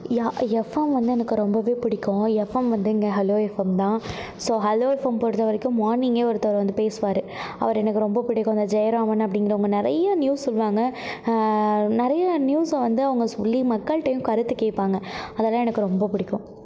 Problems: background sounds at intervals